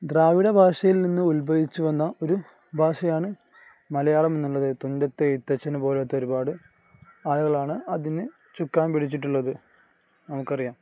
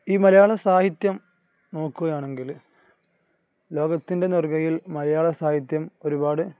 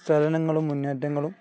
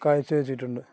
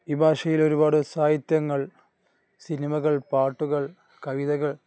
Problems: none marked